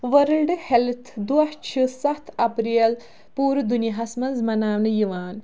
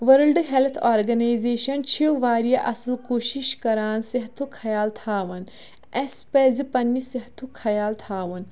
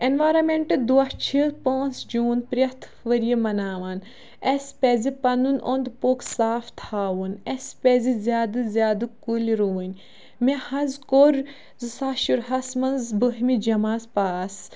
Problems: none marked